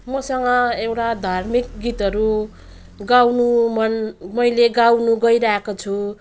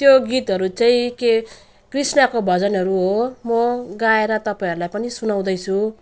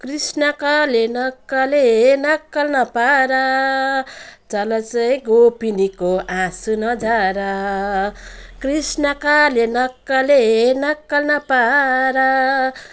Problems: none marked